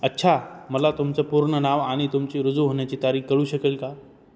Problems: none marked